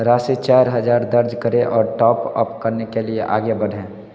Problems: none marked